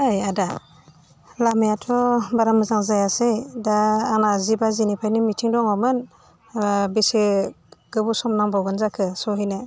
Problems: none marked